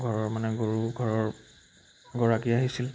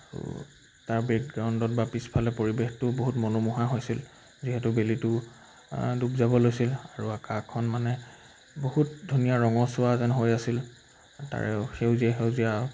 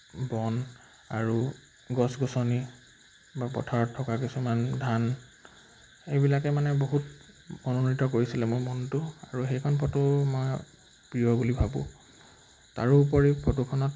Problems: background sounds at intervals